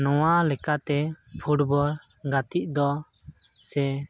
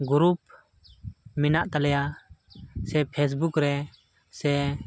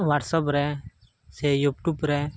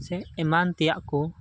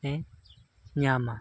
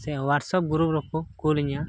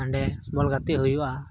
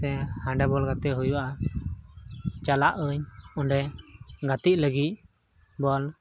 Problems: constant background noise